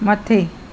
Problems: constant background noise